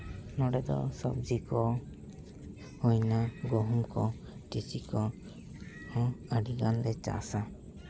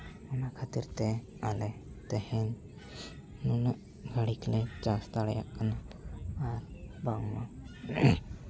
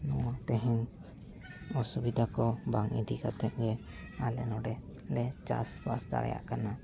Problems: background sounds at intervals, background conversations at intervals